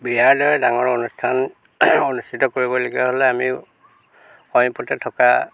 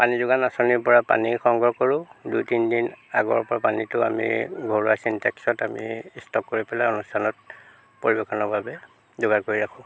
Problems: constant background noise